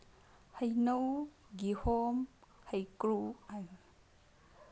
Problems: low volume